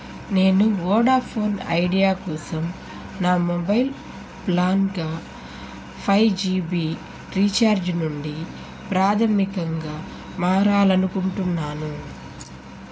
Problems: constant background noise